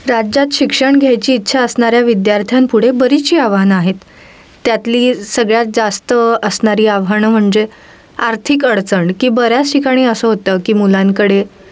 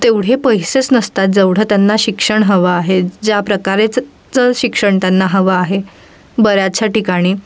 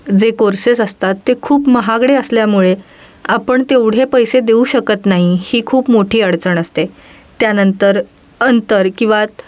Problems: background sounds at intervals